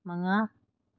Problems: low volume